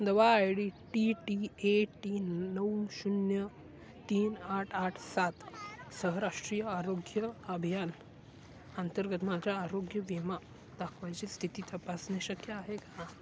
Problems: none marked